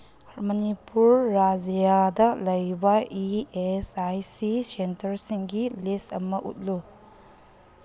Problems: background sounds at intervals, low volume